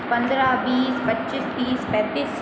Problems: constant background noise